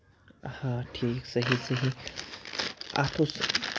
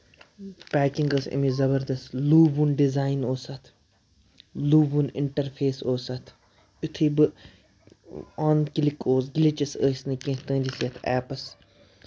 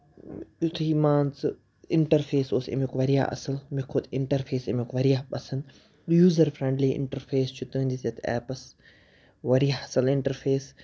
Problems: background sounds at intervals